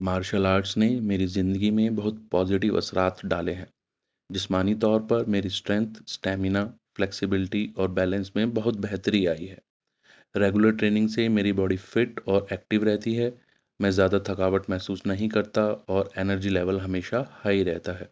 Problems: none marked